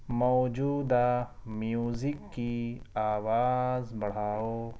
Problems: none marked